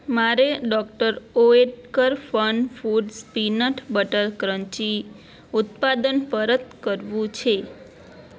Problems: none marked